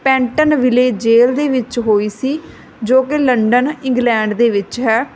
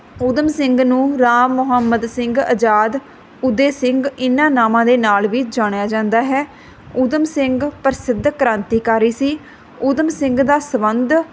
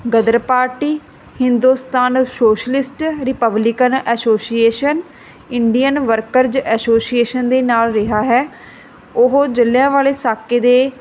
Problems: background sounds at intervals